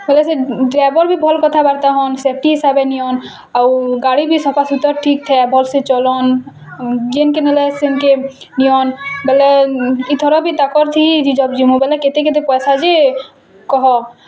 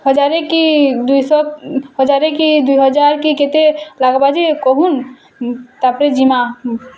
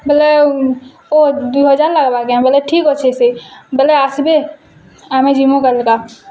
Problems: constant background noise, continuous background conversations